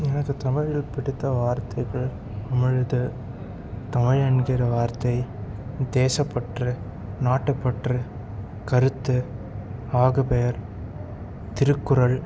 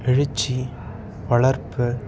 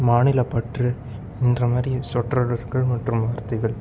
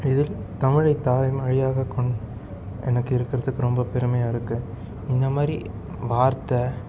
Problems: none marked